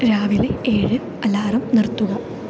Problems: low volume